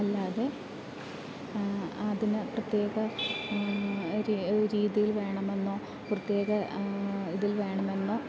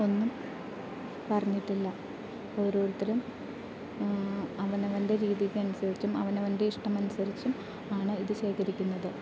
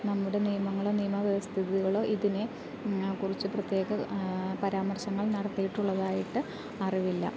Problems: constant background noise, low volume